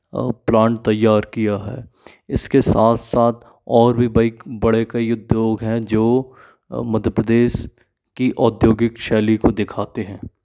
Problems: constant background noise